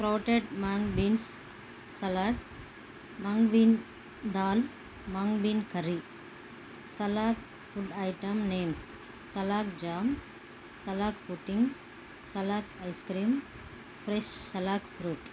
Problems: constant background noise